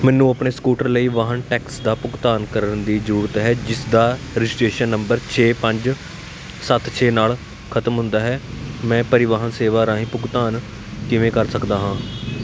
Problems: constant background noise